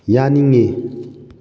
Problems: none marked